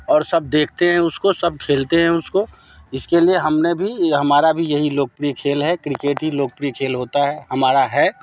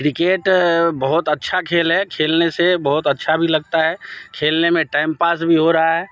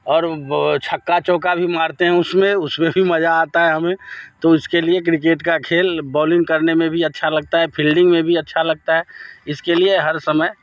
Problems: background sounds at intervals